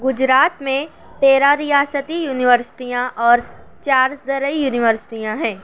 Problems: none marked